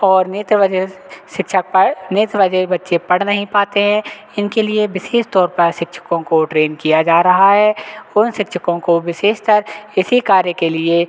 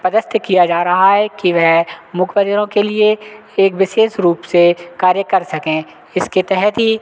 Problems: none marked